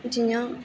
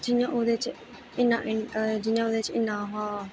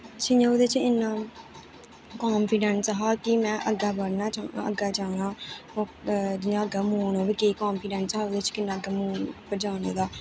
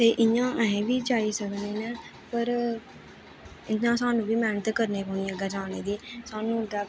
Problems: constant background noise